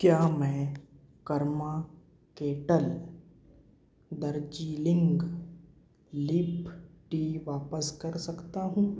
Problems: constant background noise